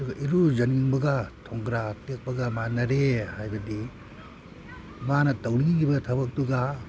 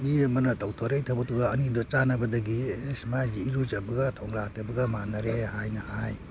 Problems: none marked